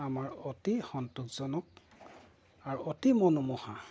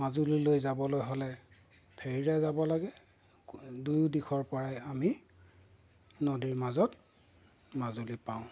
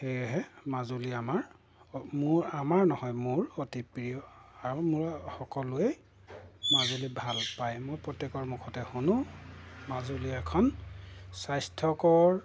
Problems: background sounds at intervals